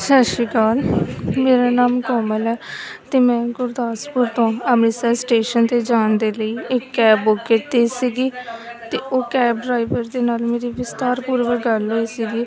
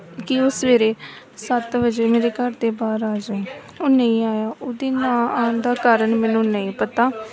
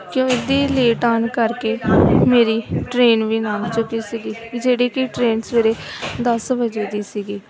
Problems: continuous background conversations